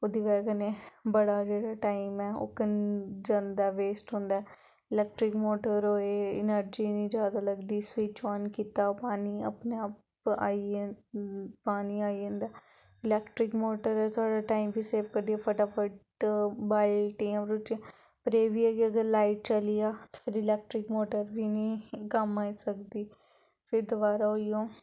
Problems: background sounds at intervals, background conversations at intervals